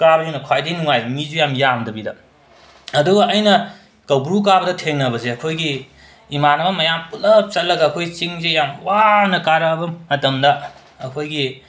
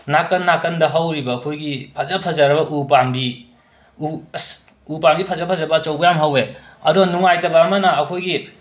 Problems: constant background noise